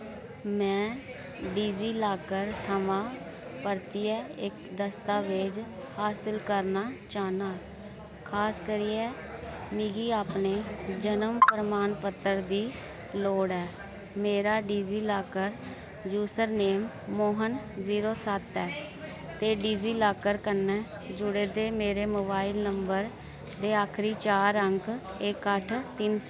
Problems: constant background noise